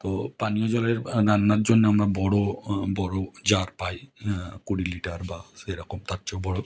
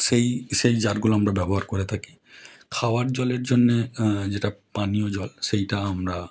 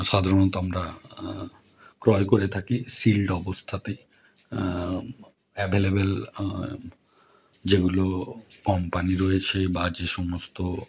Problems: none marked